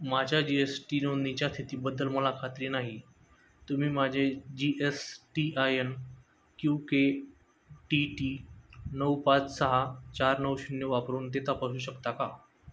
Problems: none marked